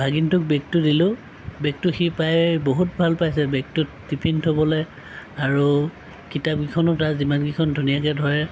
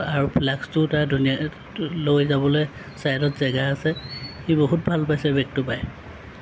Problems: none marked